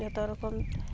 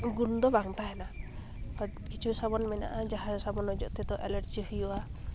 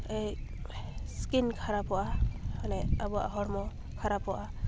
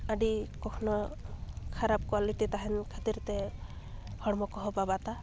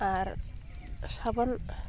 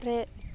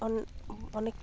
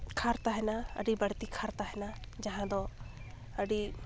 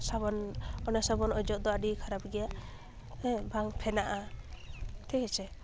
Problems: constant background noise